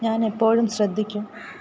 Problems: none marked